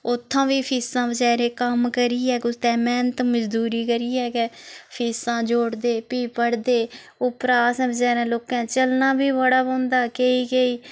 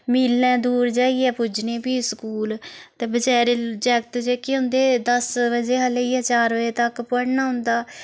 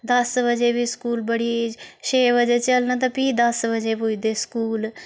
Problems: constant background noise